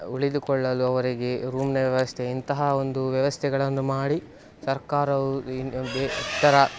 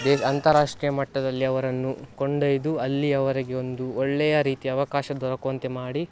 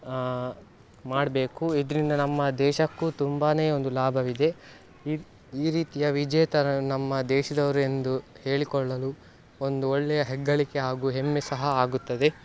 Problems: background sounds at intervals